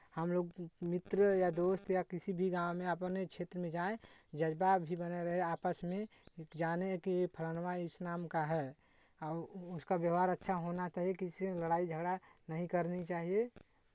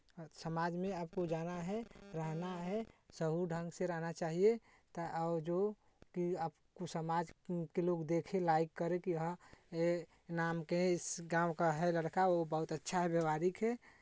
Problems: background sounds at intervals